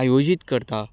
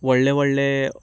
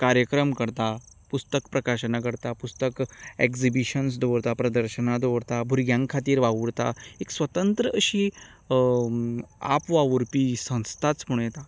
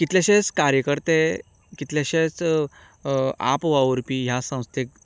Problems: continuous background conversations